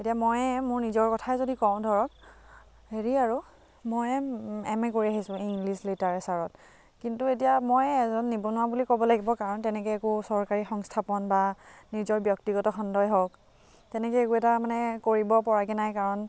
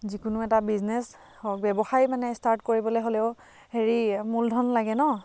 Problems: constant background noise